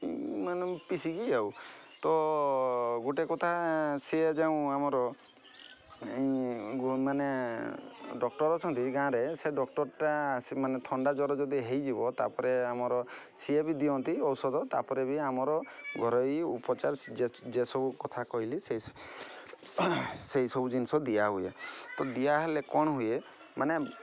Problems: constant background noise, continuous background conversations